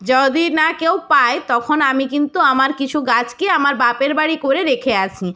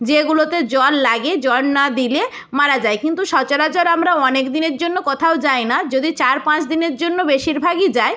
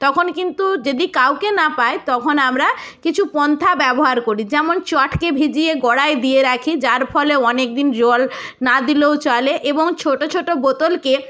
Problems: none marked